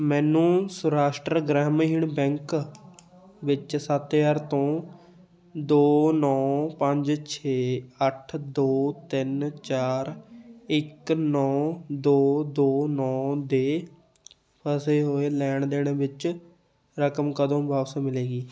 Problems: background sounds at intervals, background conversations at intervals